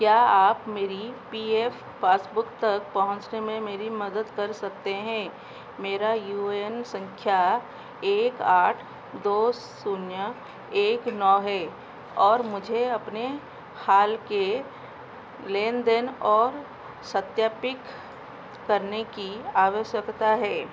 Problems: none marked